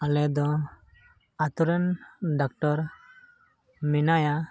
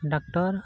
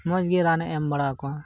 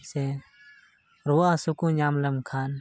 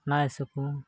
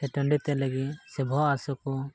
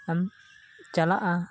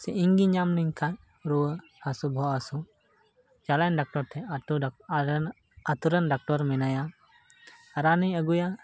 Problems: background sounds at intervals